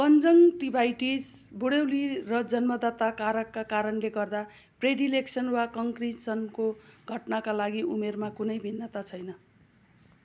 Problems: background sounds at intervals